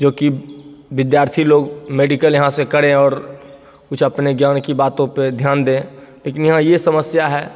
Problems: none marked